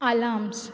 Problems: background sounds at intervals